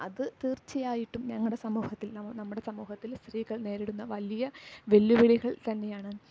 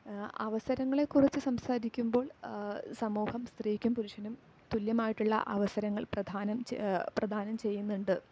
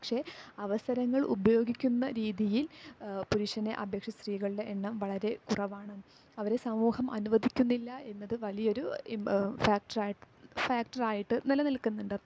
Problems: low volume